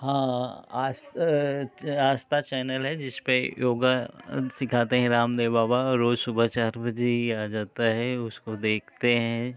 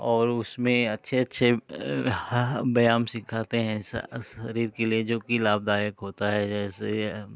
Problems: none marked